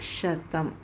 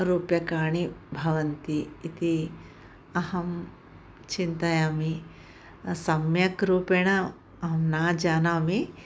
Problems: none marked